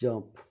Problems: low volume